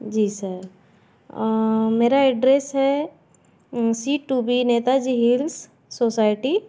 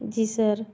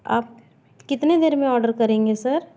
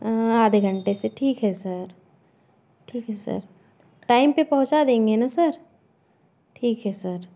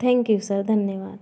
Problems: constant background noise, background conversations at intervals